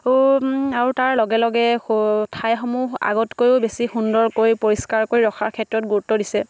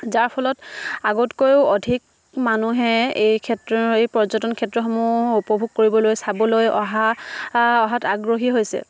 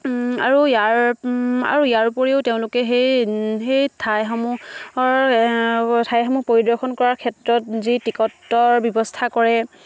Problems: background sounds at intervals